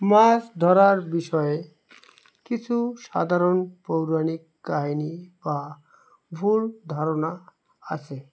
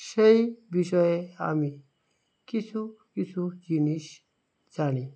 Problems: constant background noise